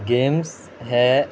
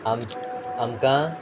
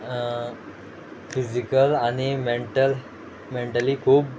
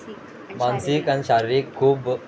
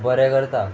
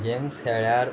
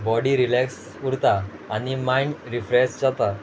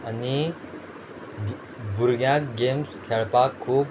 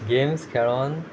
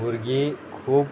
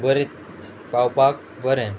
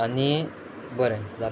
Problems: background sounds at intervals